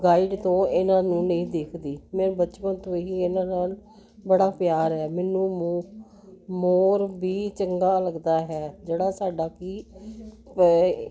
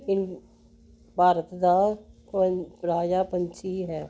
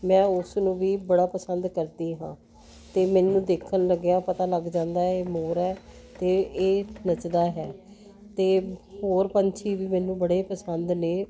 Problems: constant background noise